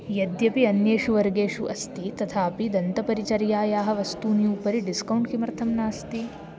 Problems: continuous background conversations